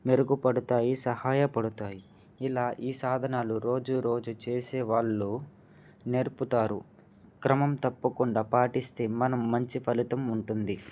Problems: none marked